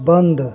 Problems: none marked